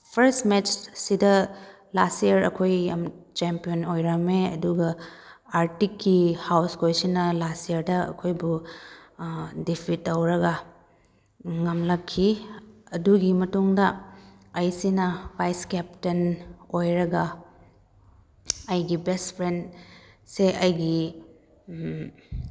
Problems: none marked